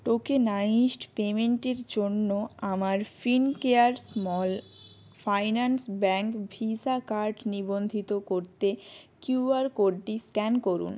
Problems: constant background noise